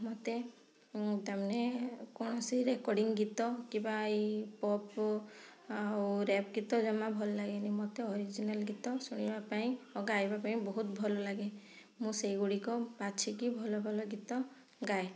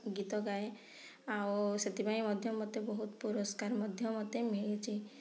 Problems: low volume